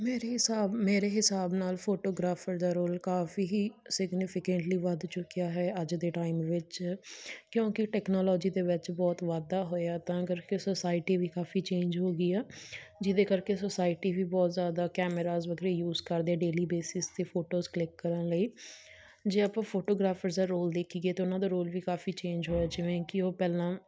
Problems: none marked